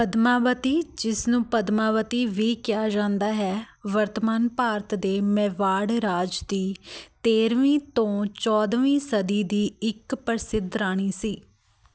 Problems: constant background noise